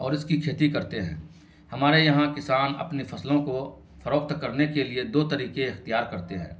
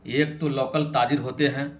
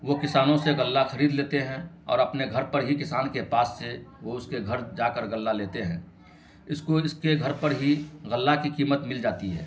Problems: constant background noise